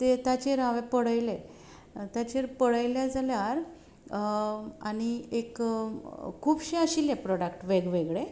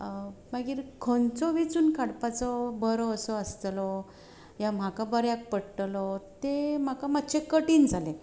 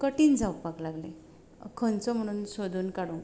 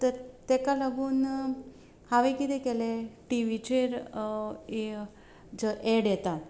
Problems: background sounds at intervals